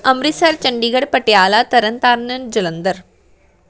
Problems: background conversations at intervals